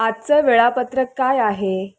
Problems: constant background noise